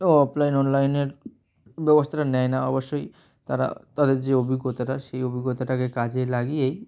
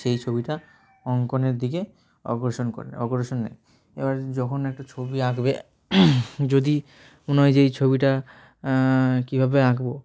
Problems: none marked